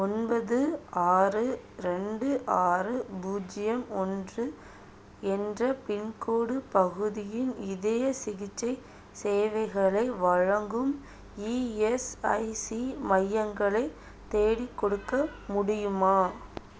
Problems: none marked